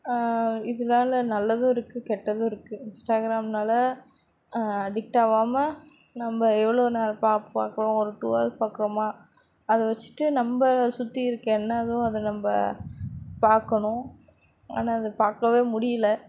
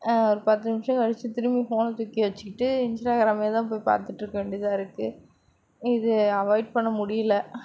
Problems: background sounds at intervals